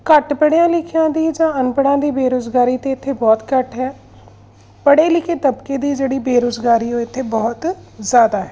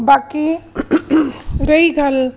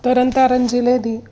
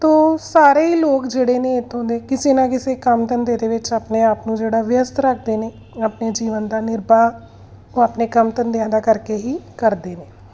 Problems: background sounds at intervals